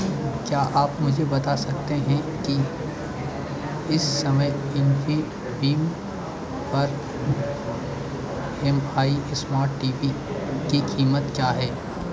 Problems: none marked